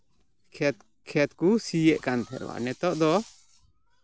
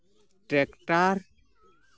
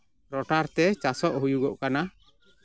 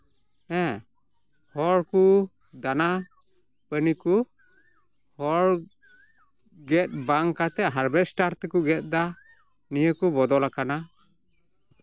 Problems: background sounds at intervals, background conversations at intervals